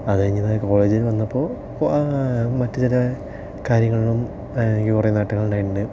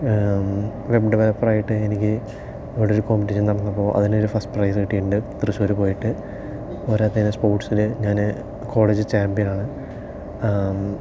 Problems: low volume